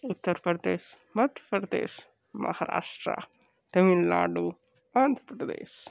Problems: low volume